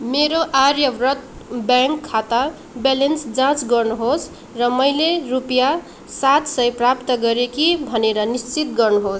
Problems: background sounds at intervals